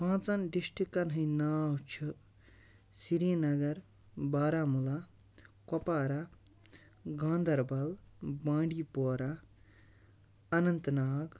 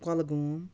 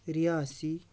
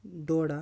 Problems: none marked